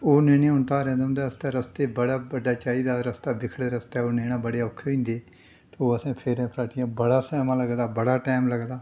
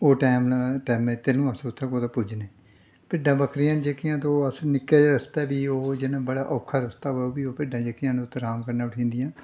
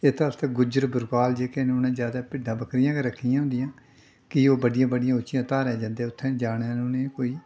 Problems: none marked